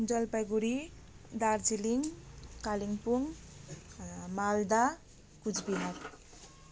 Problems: background sounds at intervals